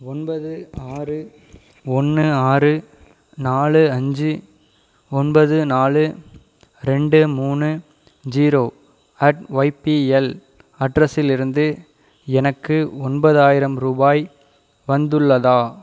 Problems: none marked